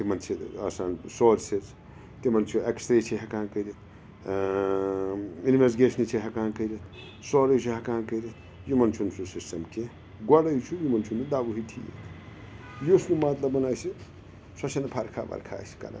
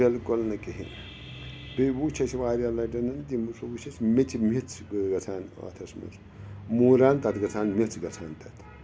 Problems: background sounds at intervals